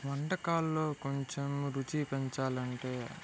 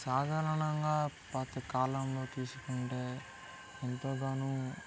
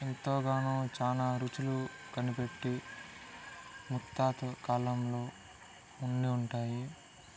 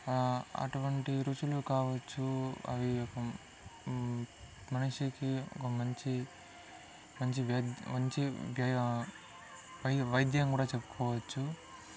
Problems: low volume